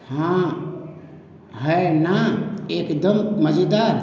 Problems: none marked